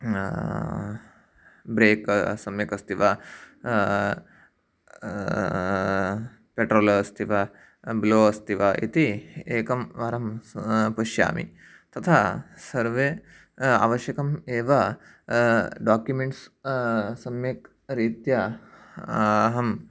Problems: none marked